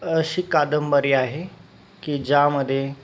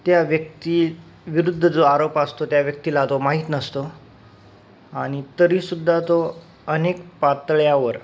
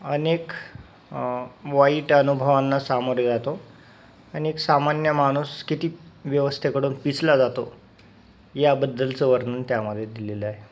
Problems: constant background noise